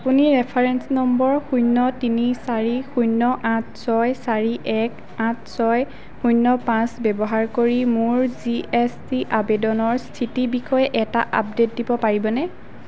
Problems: none marked